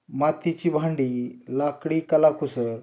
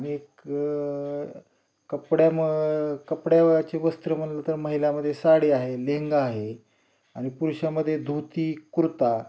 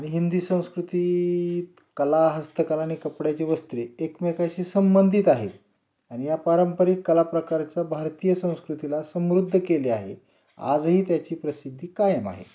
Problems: none marked